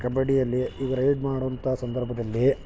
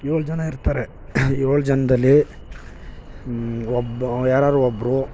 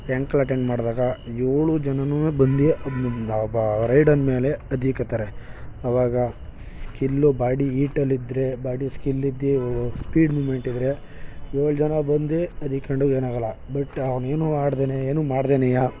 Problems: none marked